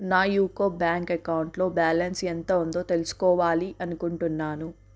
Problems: none marked